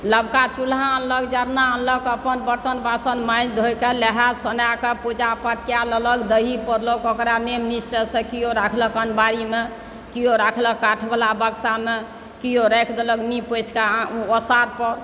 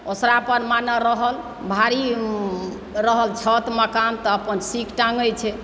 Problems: background sounds at intervals, background conversations at intervals